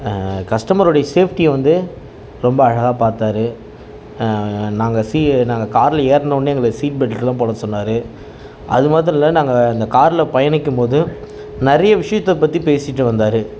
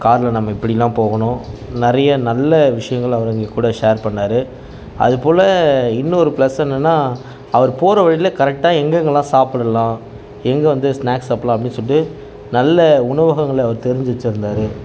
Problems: none marked